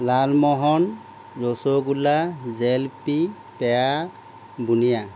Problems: constant background noise